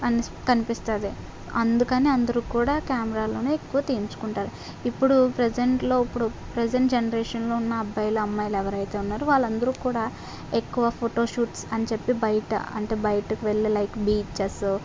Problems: none marked